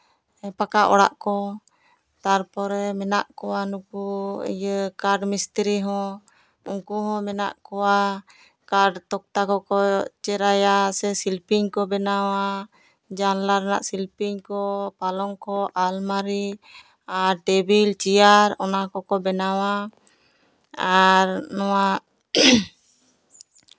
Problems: background sounds at intervals, background conversations at intervals